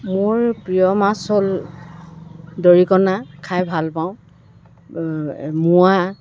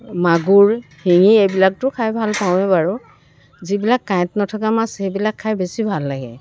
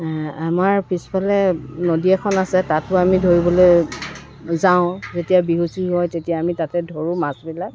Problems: constant background noise